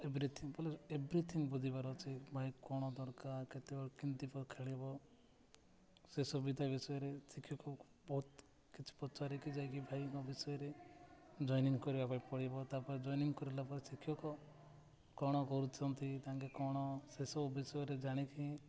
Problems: constant background noise, continuous background conversations